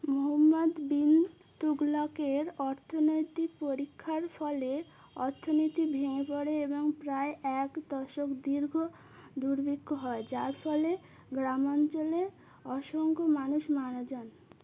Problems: none marked